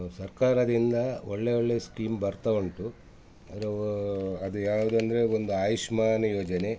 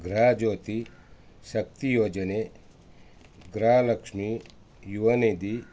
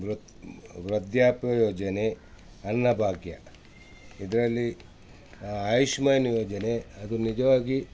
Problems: background sounds at intervals